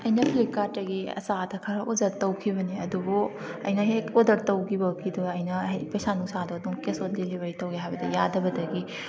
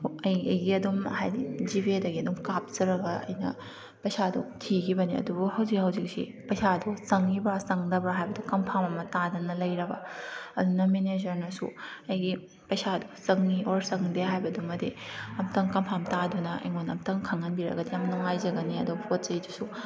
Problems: background sounds at intervals